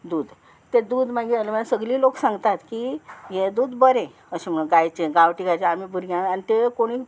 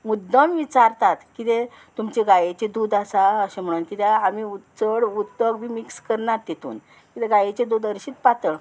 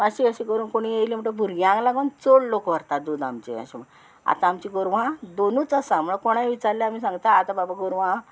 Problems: constant background noise